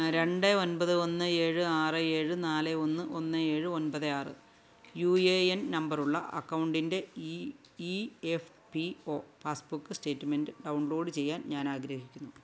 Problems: none marked